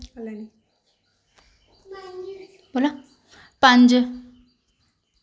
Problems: background conversations at intervals